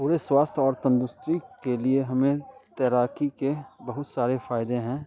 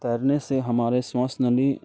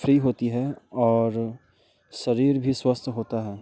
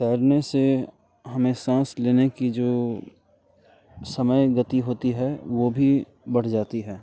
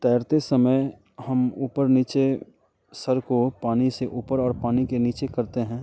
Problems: background sounds at intervals